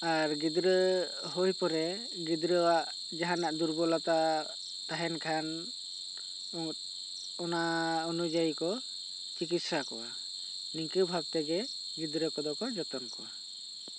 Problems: constant background noise